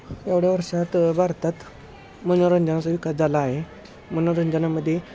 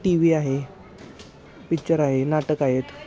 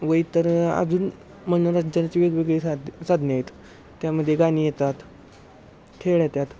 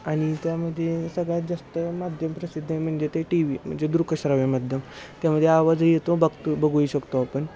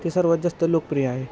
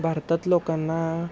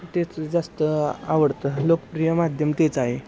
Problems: constant background noise, background conversations at intervals